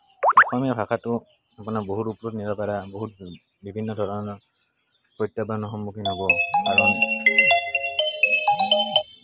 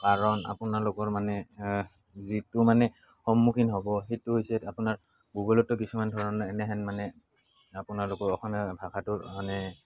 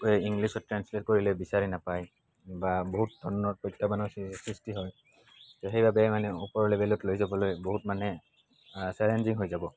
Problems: constant background noise